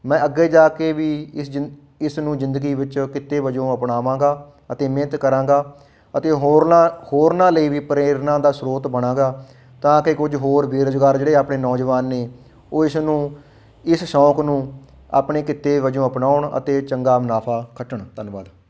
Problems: background sounds at intervals